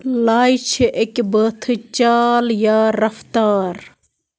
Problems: background sounds at intervals